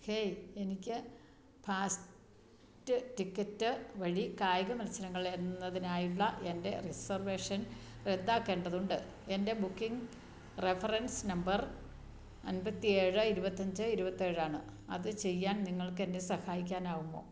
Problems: none marked